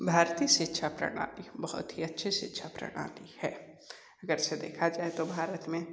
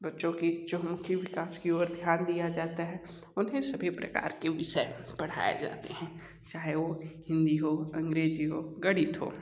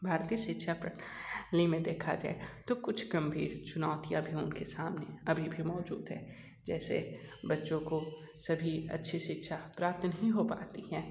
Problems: constant background noise, echo, low volume